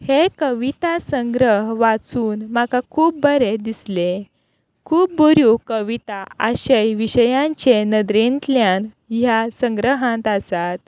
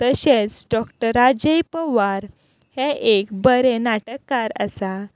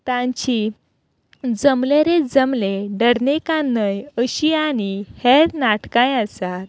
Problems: none marked